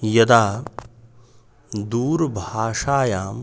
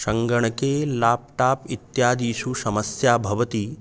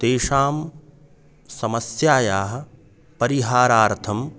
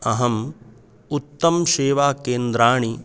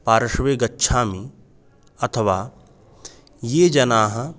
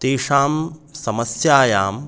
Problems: constant background noise